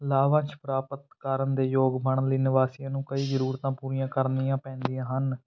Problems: none marked